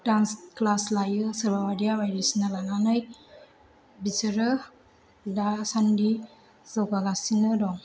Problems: none marked